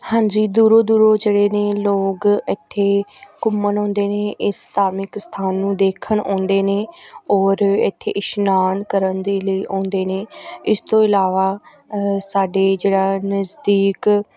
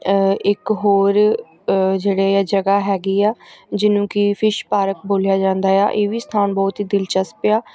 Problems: background sounds at intervals, background conversations at intervals